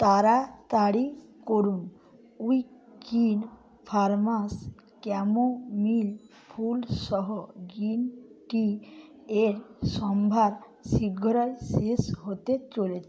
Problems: none marked